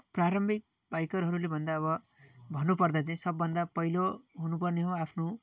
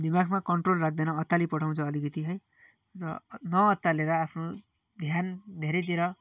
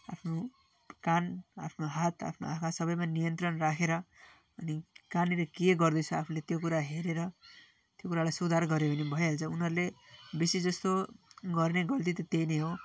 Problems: continuous background conversations